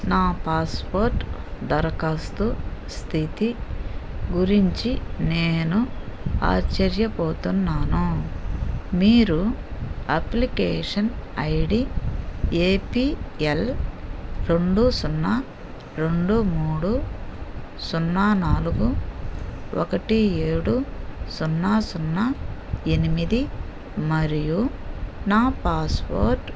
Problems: none marked